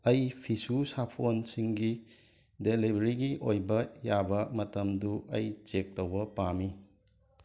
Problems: background sounds at intervals